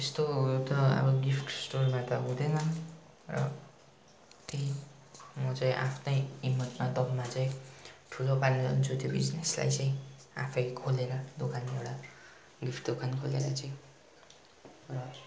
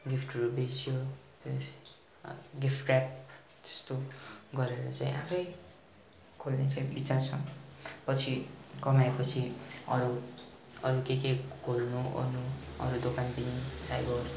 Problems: constant background noise